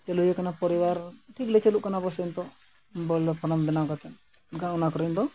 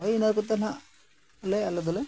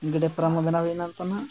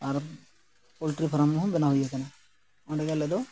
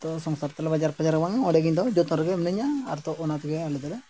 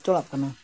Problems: background sounds at intervals